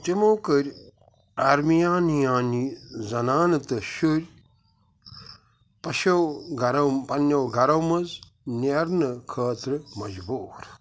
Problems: none marked